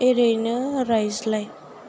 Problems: constant background noise